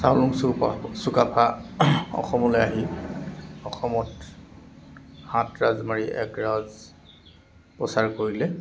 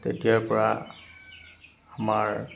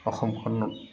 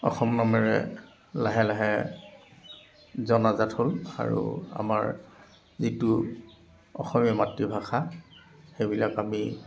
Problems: constant background noise